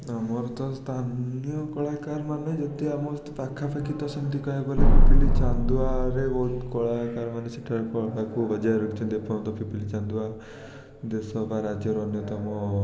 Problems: constant background noise